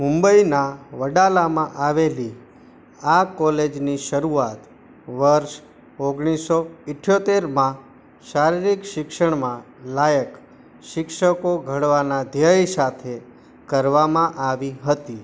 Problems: constant background noise